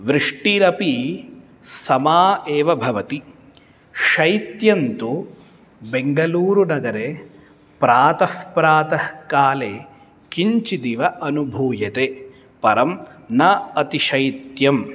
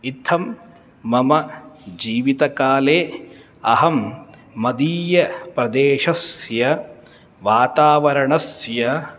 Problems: none marked